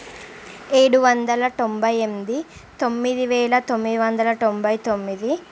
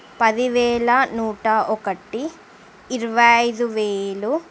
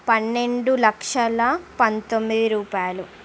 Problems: constant background noise